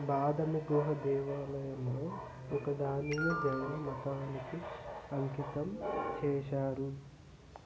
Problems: constant background noise